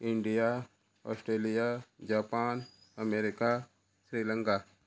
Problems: constant background noise